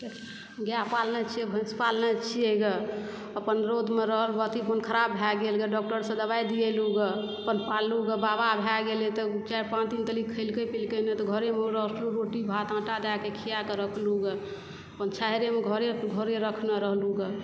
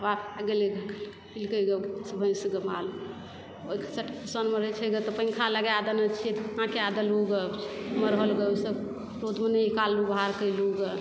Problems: background sounds at intervals, background conversations at intervals